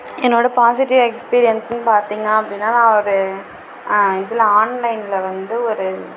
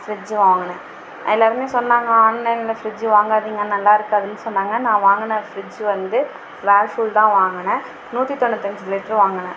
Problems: background sounds at intervals